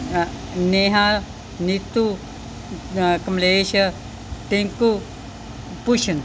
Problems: background sounds at intervals